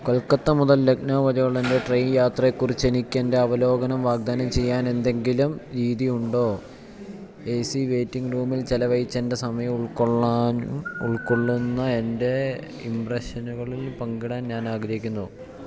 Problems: constant background noise, low volume